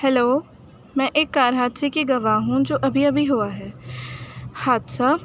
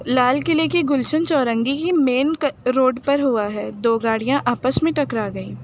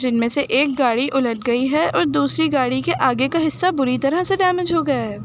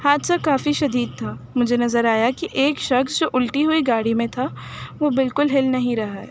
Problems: constant background noise